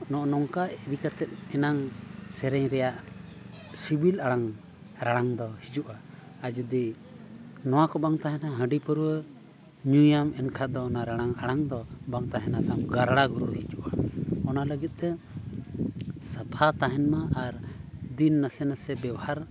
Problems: constant background noise, background conversations at intervals